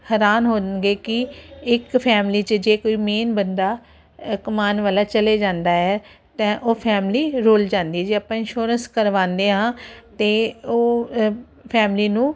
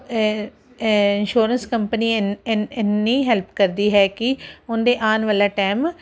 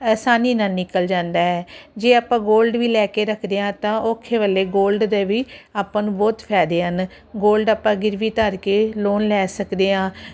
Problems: none marked